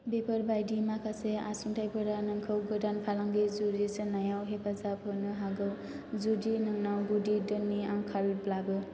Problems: none marked